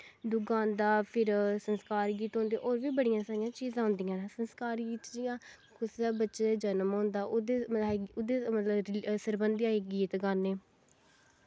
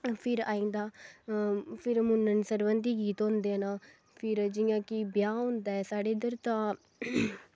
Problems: background sounds at intervals